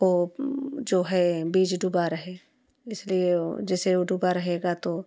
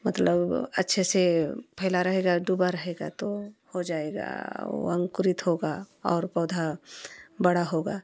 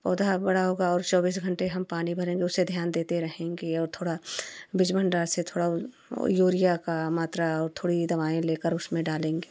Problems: constant background noise